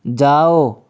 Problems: constant background noise